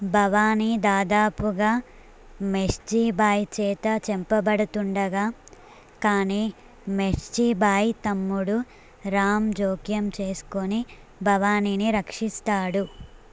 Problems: none marked